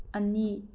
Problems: low volume